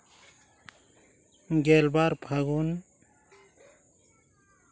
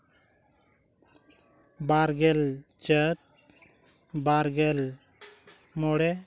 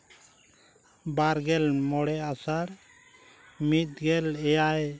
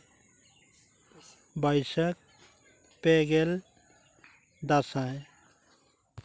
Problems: constant background noise